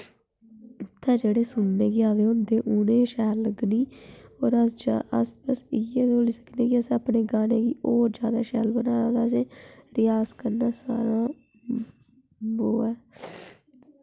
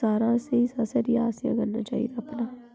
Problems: background sounds at intervals